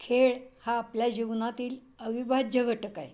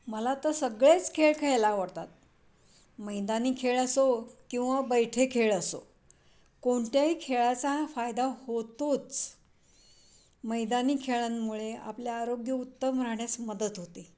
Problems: background sounds at intervals